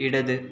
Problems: none marked